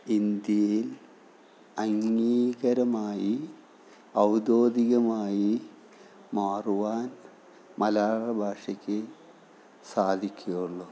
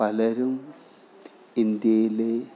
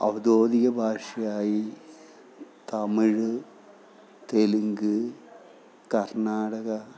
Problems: background sounds at intervals, background conversations at intervals